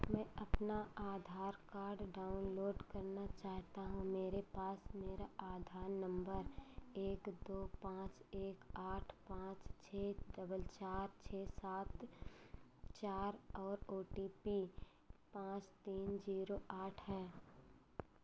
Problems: none marked